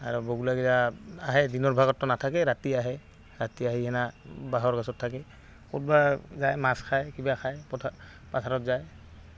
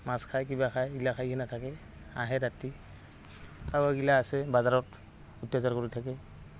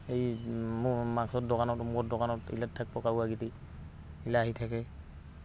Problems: constant background noise